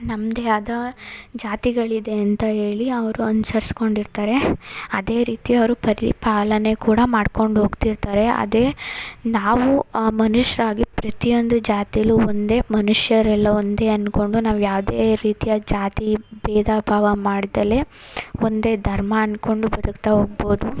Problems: none marked